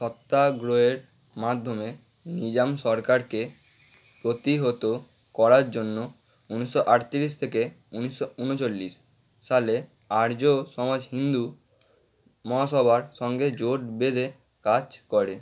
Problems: constant background noise